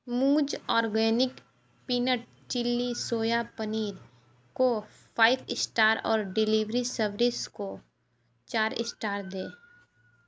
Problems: background sounds at intervals, background conversations at intervals